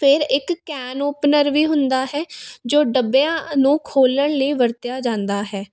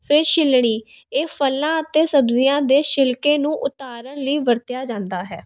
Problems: constant background noise